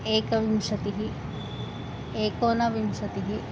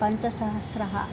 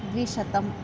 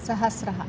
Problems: constant background noise